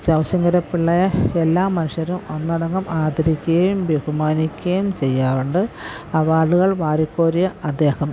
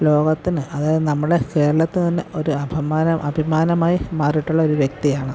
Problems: background sounds at intervals